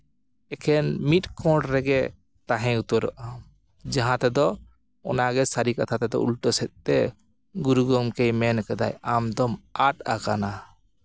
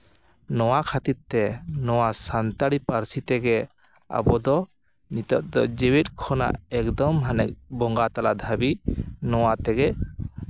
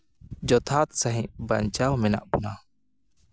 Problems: background sounds at intervals